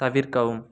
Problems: none marked